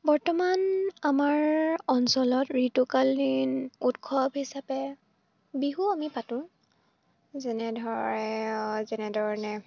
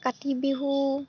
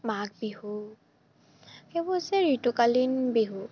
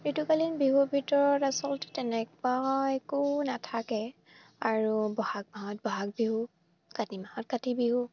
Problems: none marked